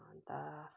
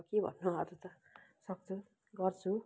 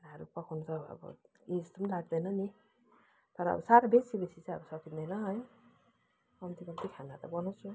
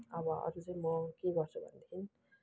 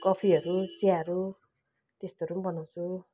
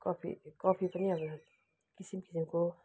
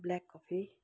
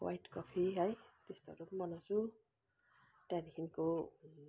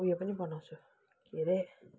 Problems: background sounds at intervals